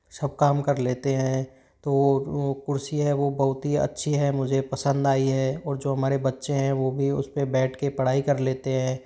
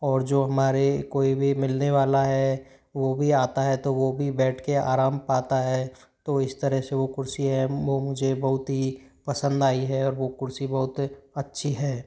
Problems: none marked